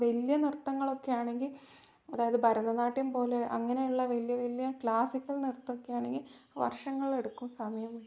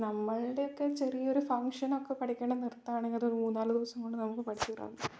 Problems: low volume